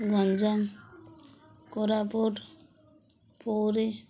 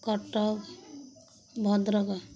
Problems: none marked